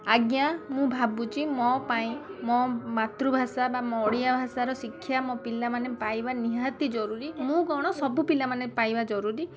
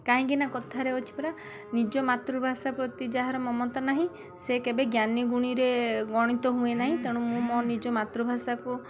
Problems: constant background noise